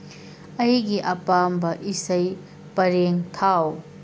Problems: constant background noise